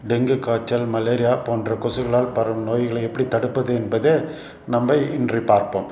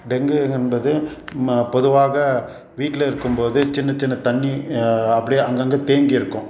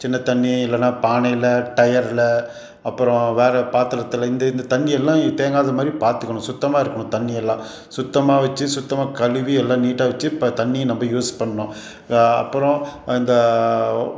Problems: none marked